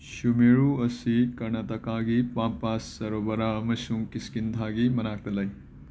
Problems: background sounds at intervals